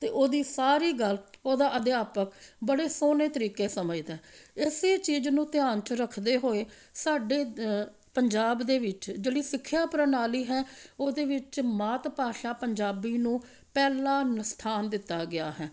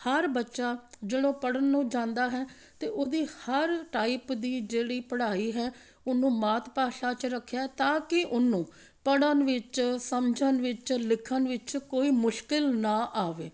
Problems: none marked